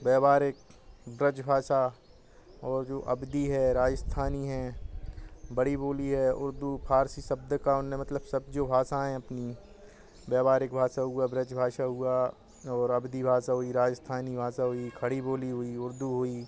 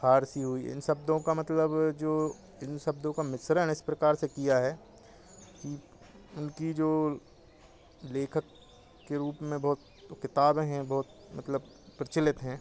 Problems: none marked